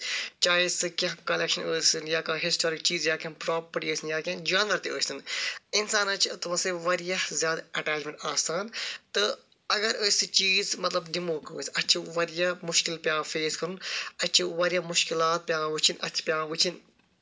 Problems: none marked